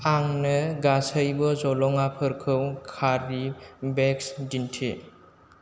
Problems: low volume